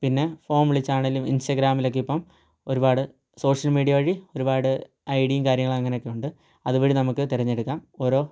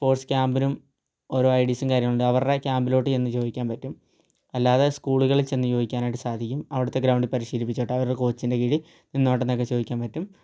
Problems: low volume